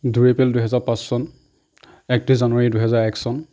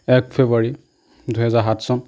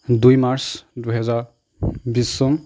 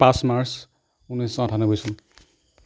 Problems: none marked